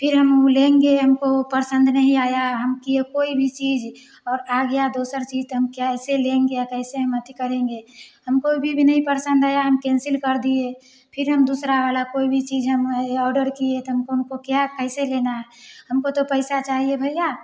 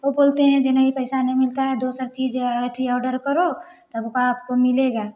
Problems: background sounds at intervals